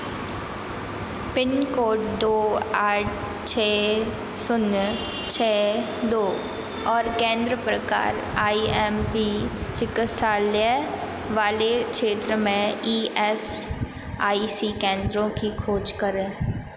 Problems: constant background noise, echo